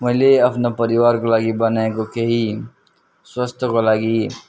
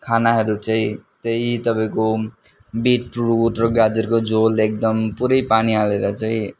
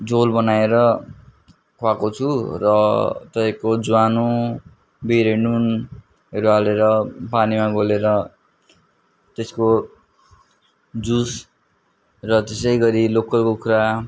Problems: background sounds at intervals